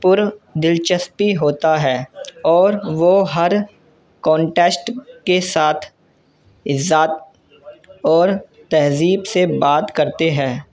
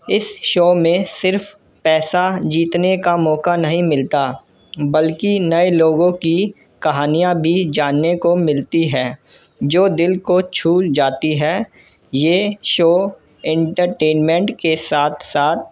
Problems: constant background noise